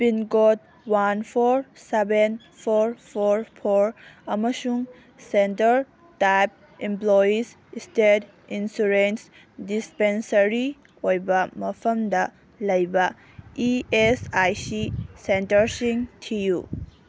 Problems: none marked